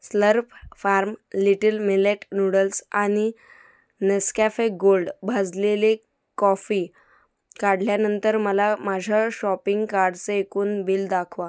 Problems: background sounds at intervals